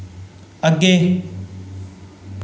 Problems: none marked